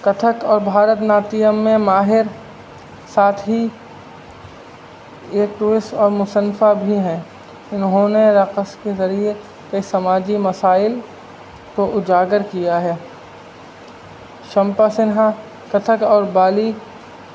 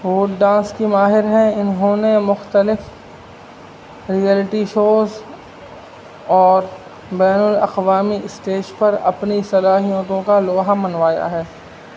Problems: constant background noise